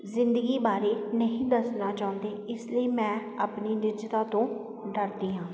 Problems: constant background noise